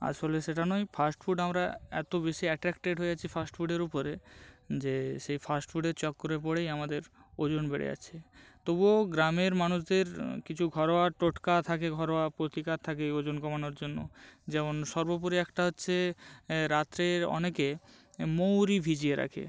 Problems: none marked